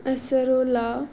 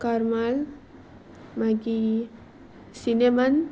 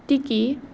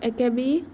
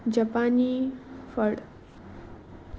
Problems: constant background noise